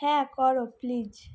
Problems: none marked